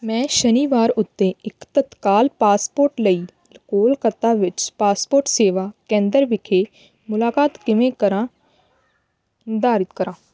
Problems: constant background noise